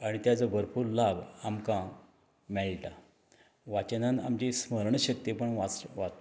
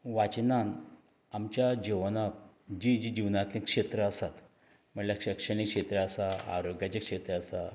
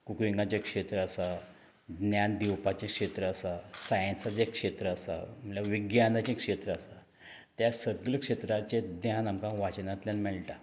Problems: none marked